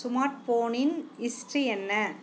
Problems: low volume